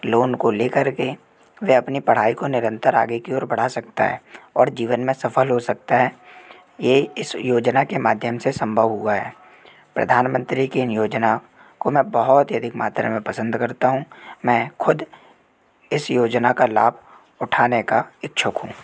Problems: constant background noise